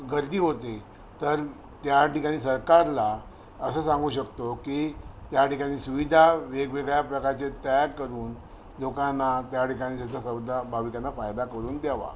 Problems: none marked